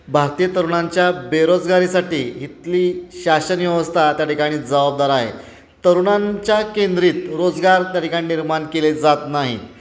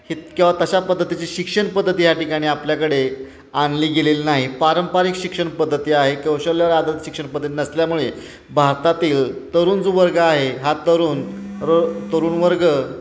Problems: constant background noise, continuous background conversations